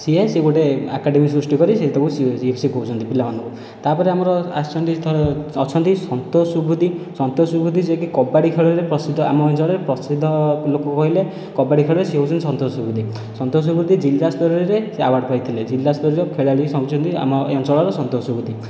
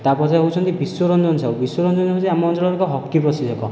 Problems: none marked